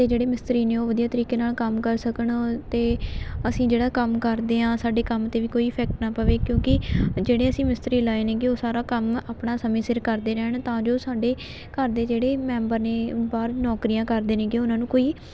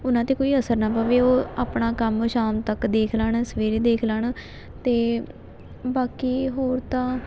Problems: none marked